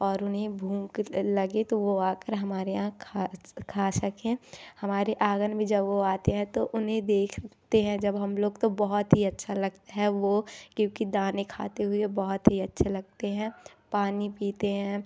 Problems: none marked